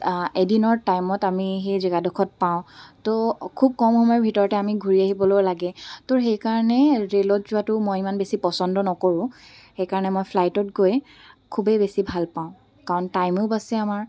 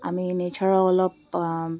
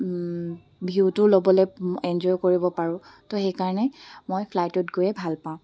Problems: background sounds at intervals